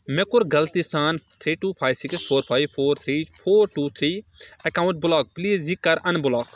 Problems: none marked